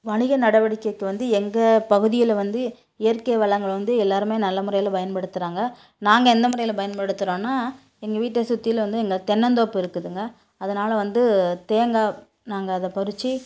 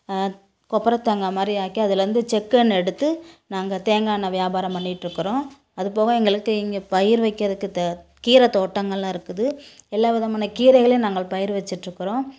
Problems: none marked